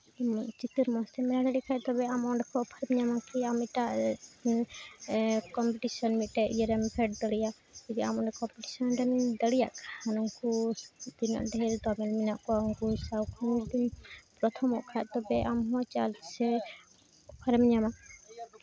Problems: constant background noise, continuous background conversations